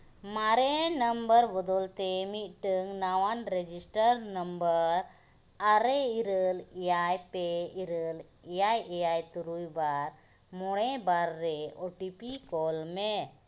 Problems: constant background noise